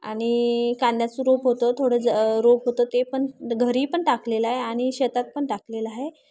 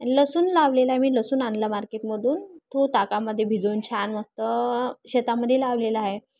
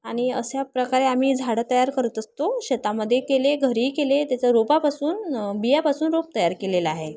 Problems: constant background noise, continuous background conversations